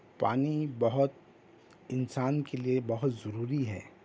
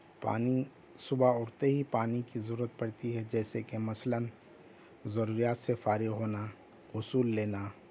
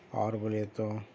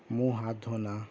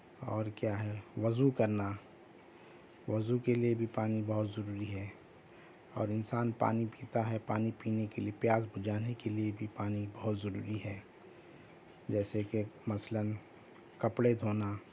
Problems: background sounds at intervals